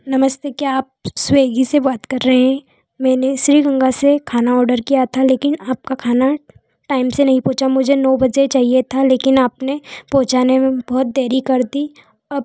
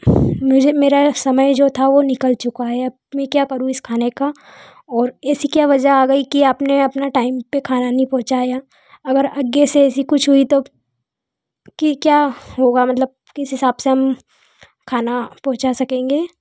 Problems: none marked